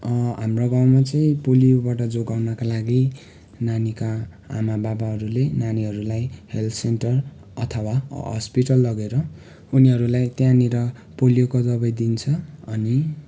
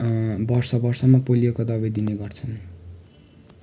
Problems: background sounds at intervals